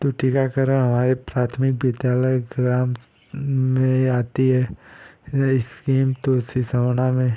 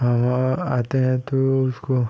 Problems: constant background noise